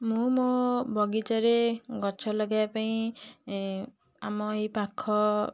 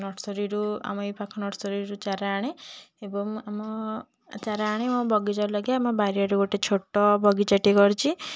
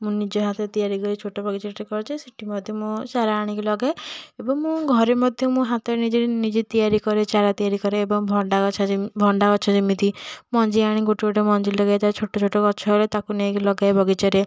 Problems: none marked